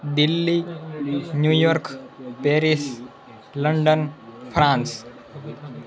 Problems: background conversations at intervals